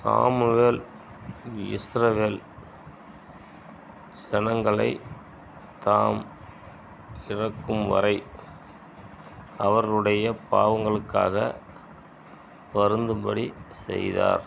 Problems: constant background noise